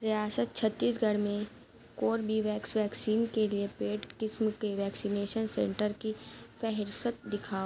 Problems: none marked